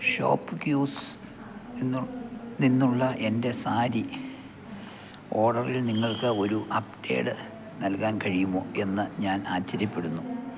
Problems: background sounds at intervals